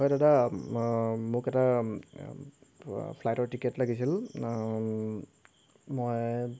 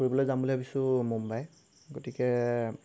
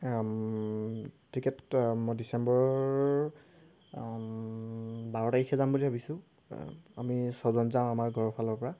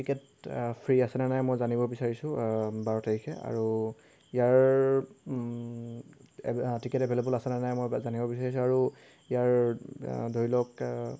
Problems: none marked